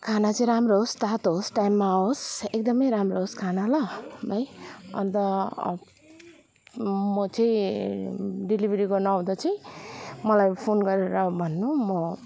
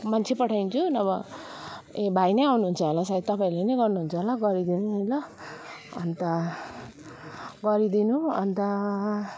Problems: background sounds at intervals